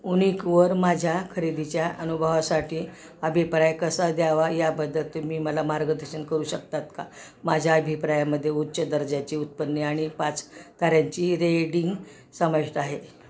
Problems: constant background noise, continuous background conversations